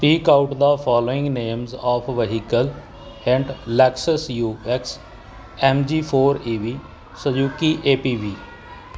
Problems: none marked